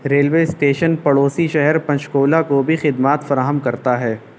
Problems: constant background noise